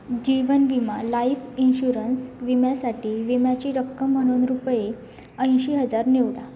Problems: none marked